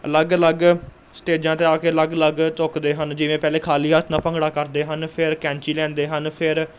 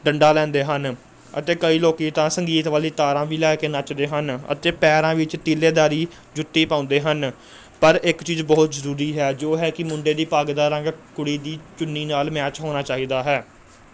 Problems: none marked